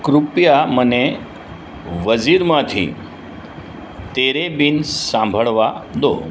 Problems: constant background noise